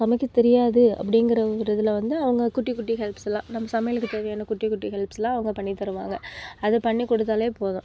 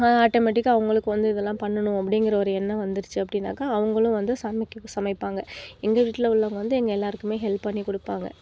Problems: none marked